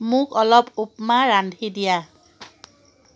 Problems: constant background noise